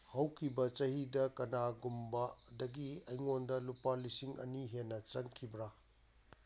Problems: background sounds at intervals